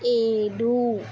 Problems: constant background noise